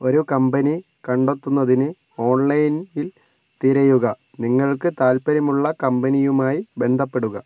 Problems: low volume